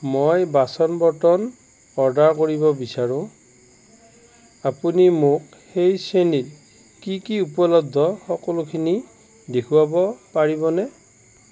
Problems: constant background noise